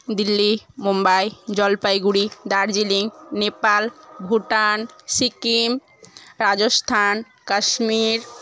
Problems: none marked